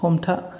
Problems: none marked